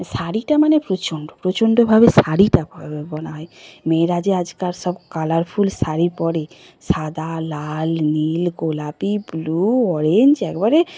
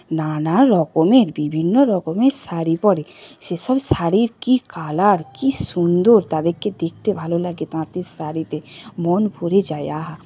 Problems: constant background noise, continuous background conversations